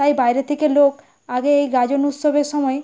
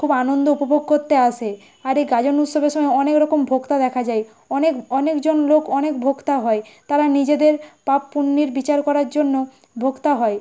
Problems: background sounds at intervals